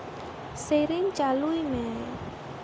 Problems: constant background noise